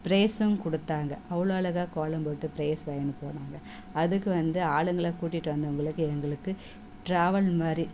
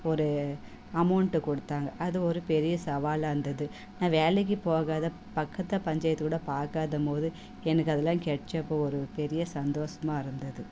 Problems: background sounds at intervals, background conversations at intervals